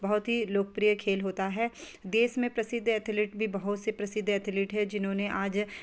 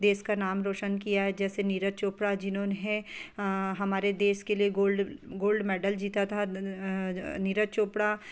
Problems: constant background noise